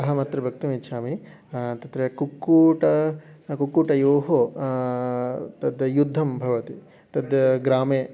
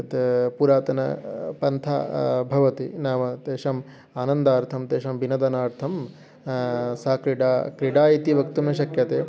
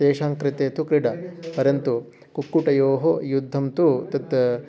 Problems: continuous background conversations